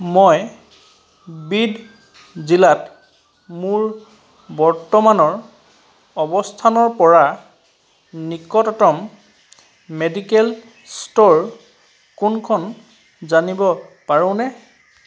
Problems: background sounds at intervals